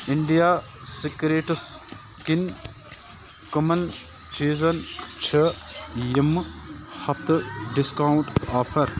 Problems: constant background noise